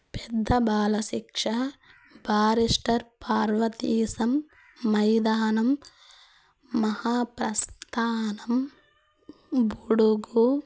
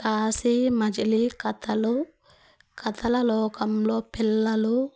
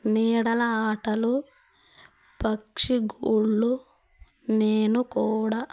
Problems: constant background noise